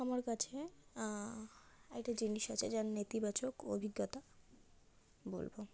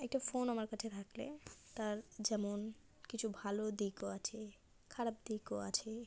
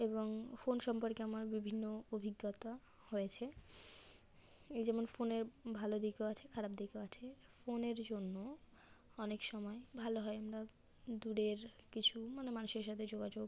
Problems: background sounds at intervals, low volume